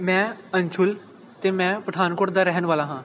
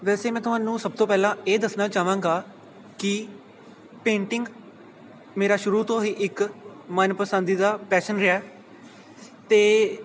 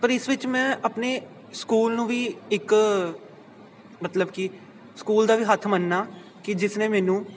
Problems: constant background noise